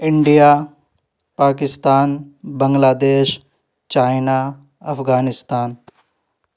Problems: none marked